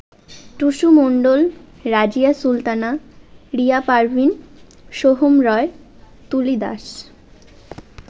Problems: constant background noise